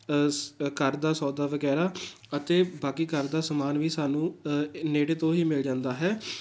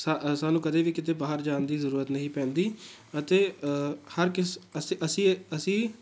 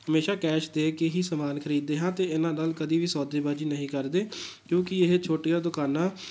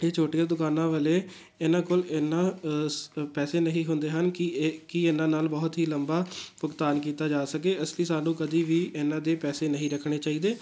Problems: background sounds at intervals